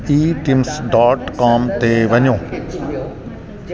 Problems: constant background noise